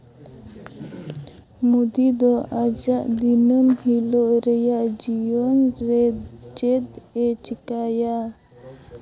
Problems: constant background noise